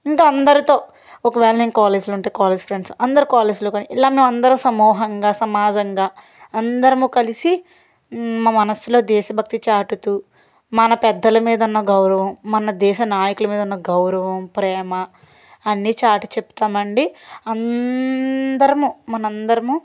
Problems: none marked